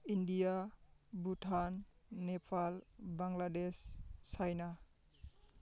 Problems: constant background noise